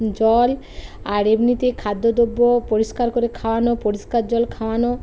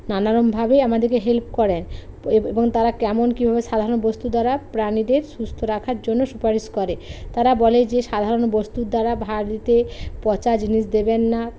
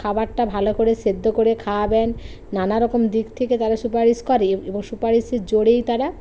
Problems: constant background noise